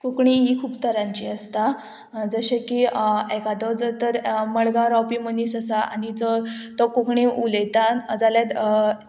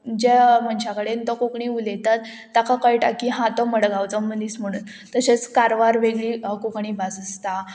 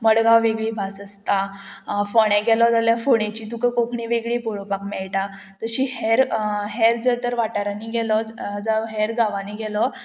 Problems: constant background noise